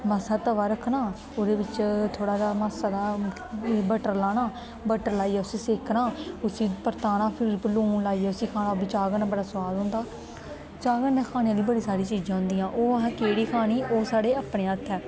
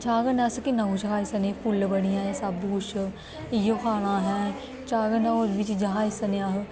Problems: constant background noise